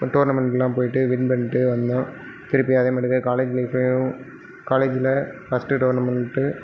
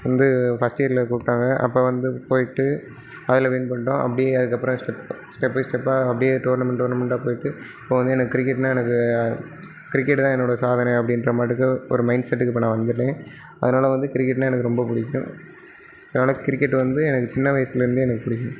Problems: none marked